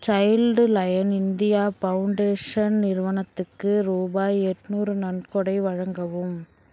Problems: none marked